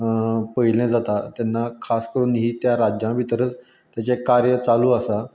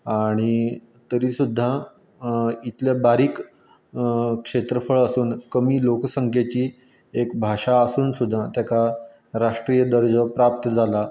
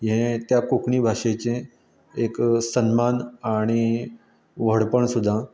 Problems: background sounds at intervals